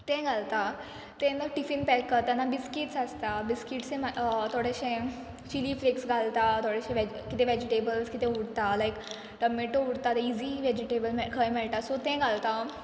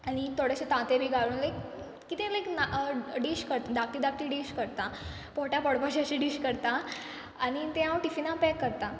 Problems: background sounds at intervals